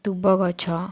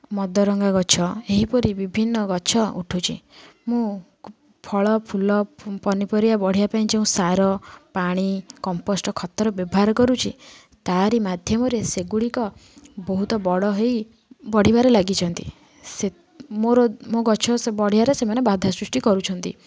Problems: none marked